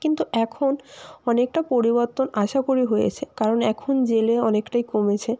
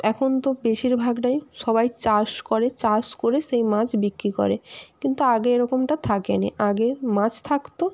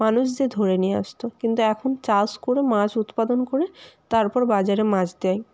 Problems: constant background noise